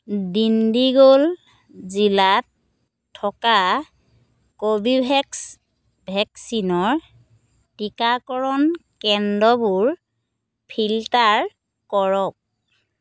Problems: none marked